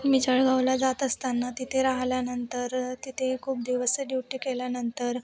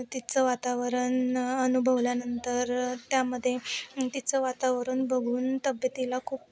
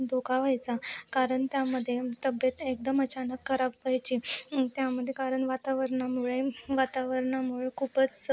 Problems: none marked